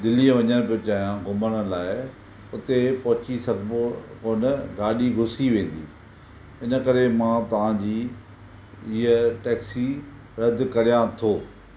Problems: none marked